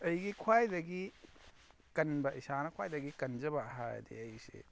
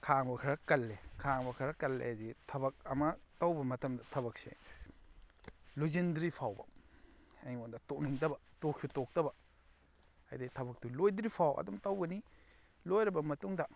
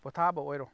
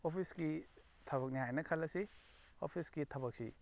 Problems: none marked